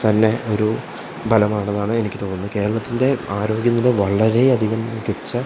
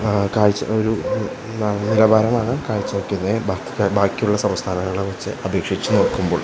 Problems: constant background noise, low volume